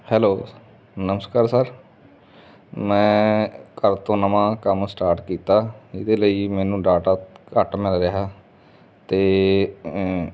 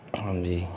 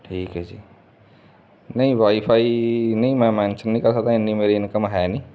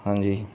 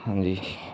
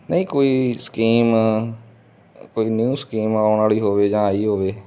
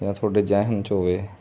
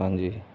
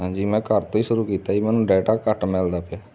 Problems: constant background noise